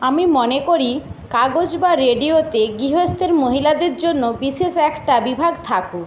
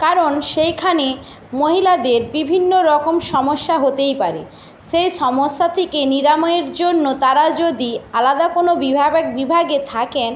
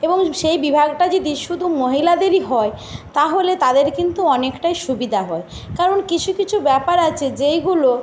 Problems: constant background noise